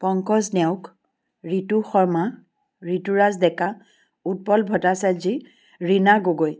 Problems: none marked